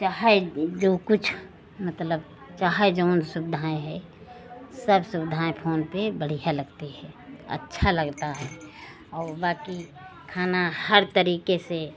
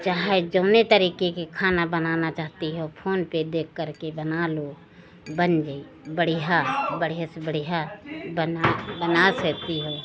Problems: none marked